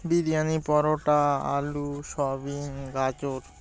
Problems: none marked